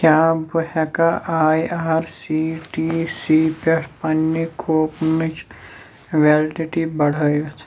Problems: none marked